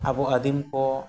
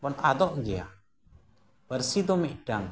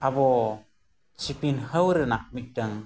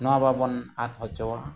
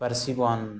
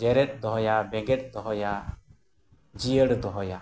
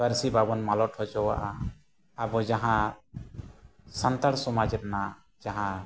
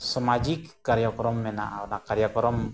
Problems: none marked